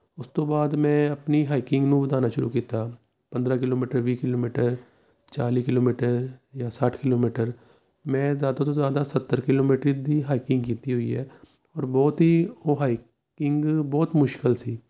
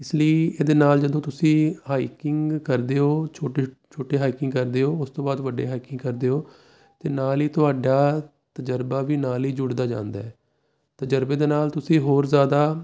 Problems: none marked